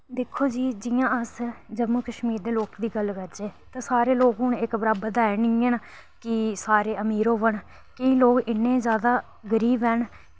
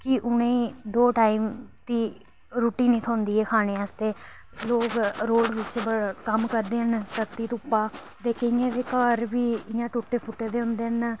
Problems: constant background noise